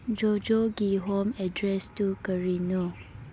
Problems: none marked